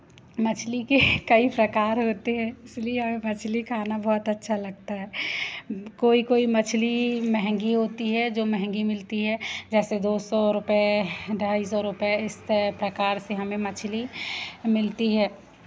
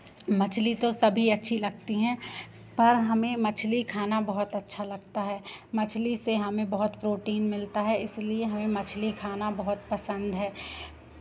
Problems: constant background noise